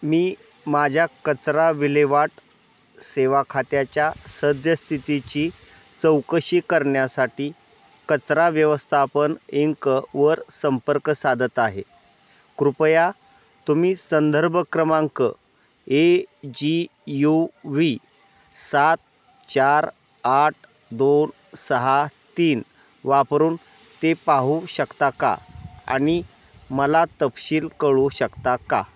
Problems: none marked